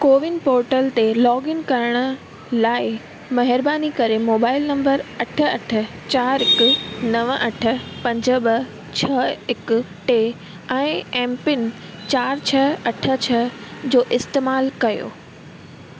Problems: constant background noise